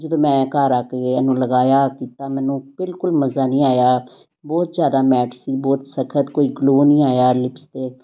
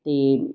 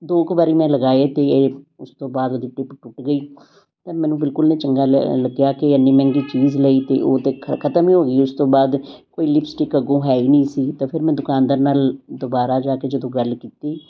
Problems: constant background noise